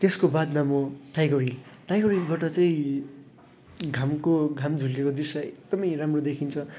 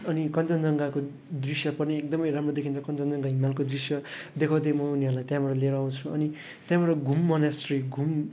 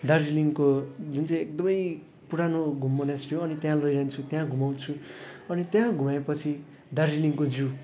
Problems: none marked